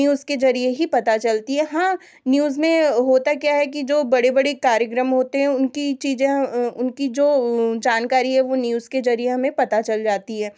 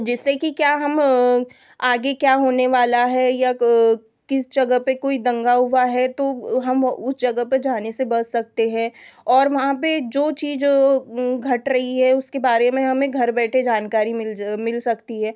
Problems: constant background noise